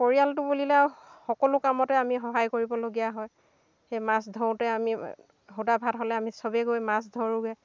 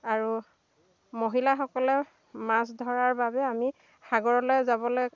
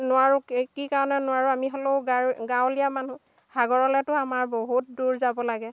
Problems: background sounds at intervals, background conversations at intervals